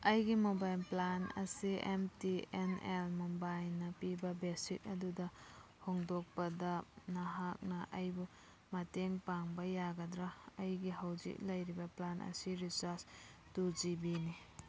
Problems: background conversations at intervals